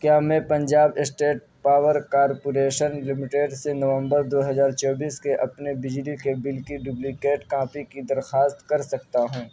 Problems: background sounds at intervals, background conversations at intervals, low volume